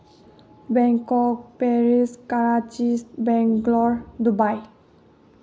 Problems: low volume